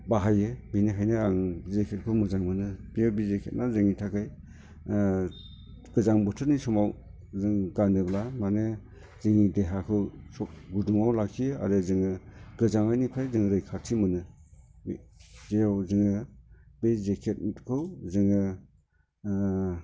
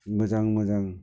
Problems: constant background noise